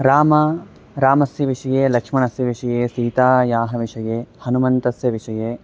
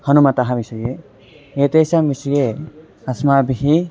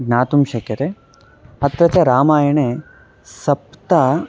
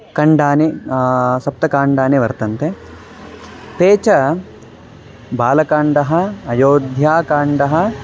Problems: none marked